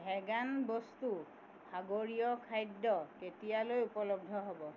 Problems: background sounds at intervals